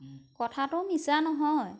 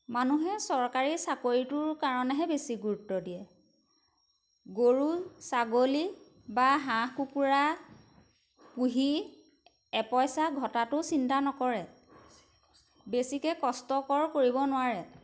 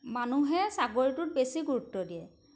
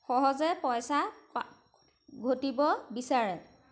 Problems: background sounds at intervals